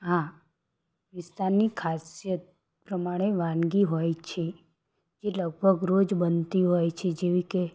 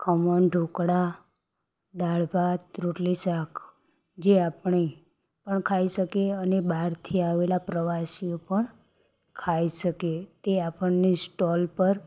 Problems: background sounds at intervals